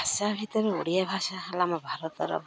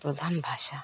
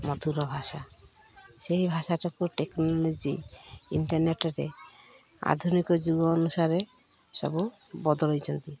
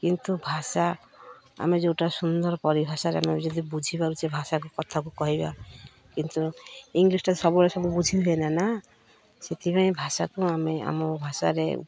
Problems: none marked